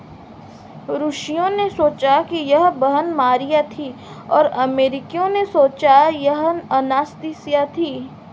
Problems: none marked